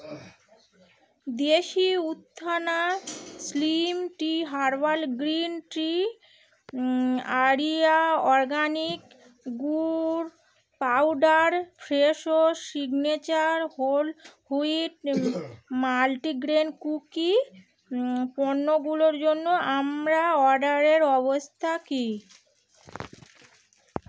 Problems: constant background noise